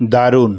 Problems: none marked